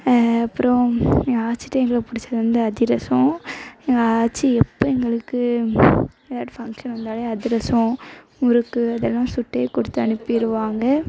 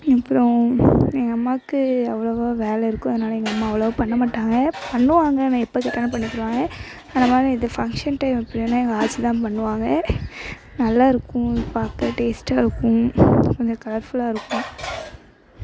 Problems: constant background noise, background conversations at intervals